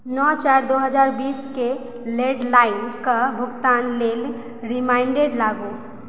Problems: background sounds at intervals